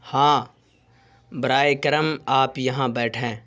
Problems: constant background noise